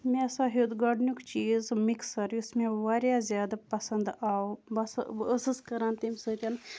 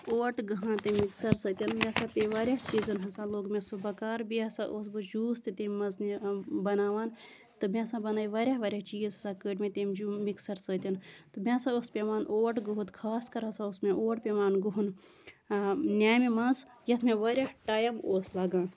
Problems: none marked